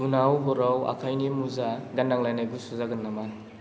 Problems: constant background noise